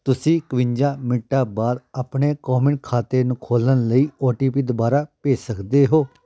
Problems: background conversations at intervals